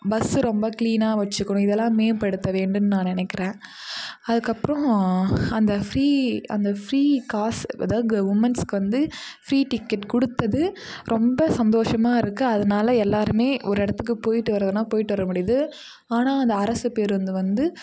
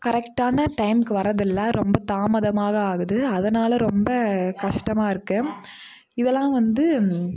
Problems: none marked